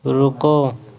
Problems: constant background noise